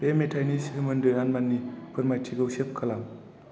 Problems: constant background noise